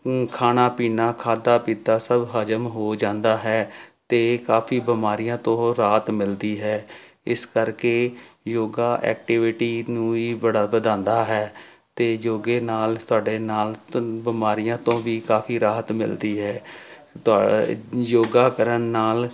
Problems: constant background noise